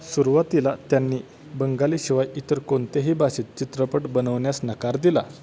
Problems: constant background noise, background conversations at intervals